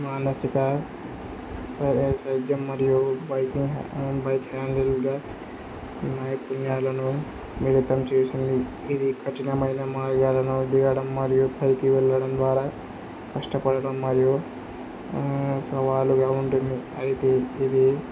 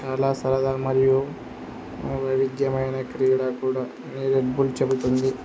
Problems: constant background noise